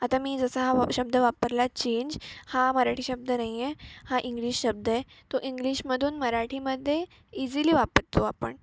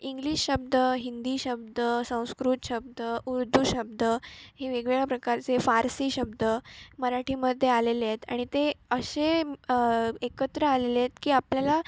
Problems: background sounds at intervals